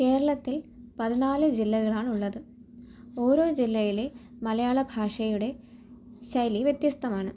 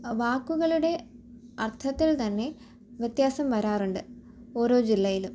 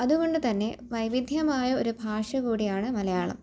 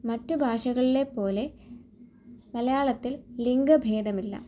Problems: none marked